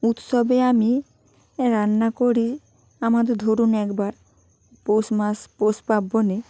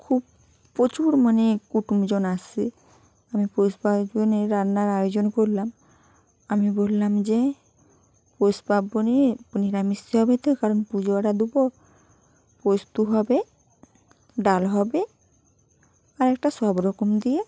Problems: constant background noise